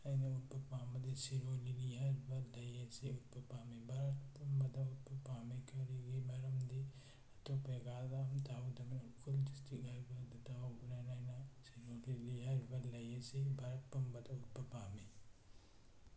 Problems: low volume